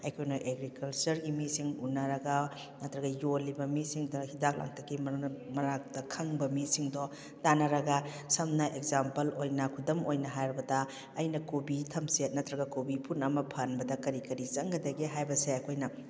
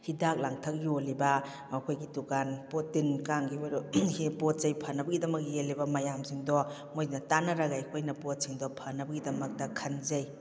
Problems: none marked